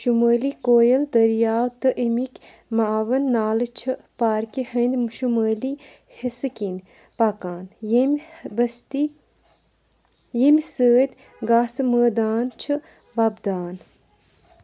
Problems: background sounds at intervals